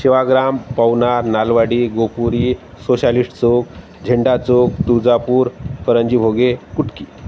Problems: constant background noise